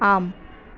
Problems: constant background noise